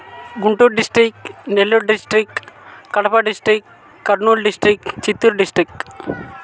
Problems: constant background noise, continuous background conversations